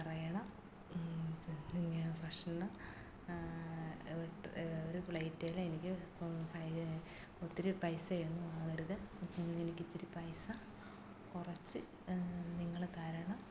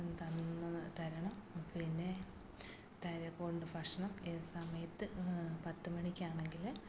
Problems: constant background noise, low volume